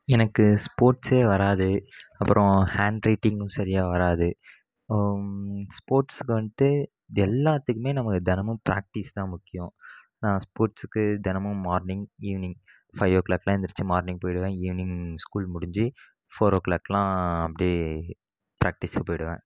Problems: background sounds at intervals